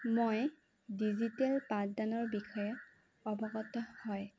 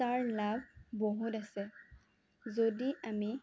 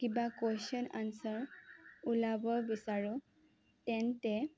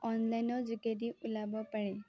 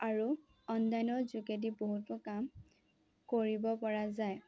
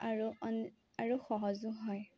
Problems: low volume